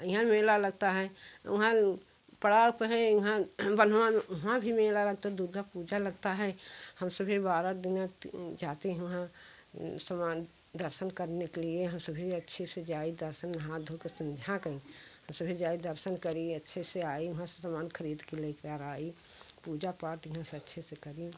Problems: constant background noise